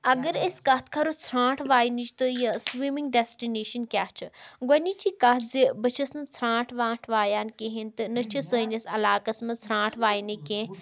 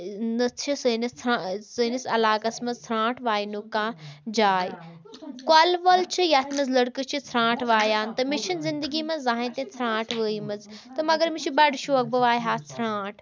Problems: continuous background conversations